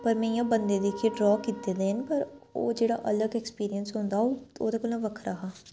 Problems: none marked